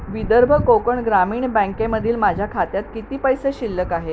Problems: constant background noise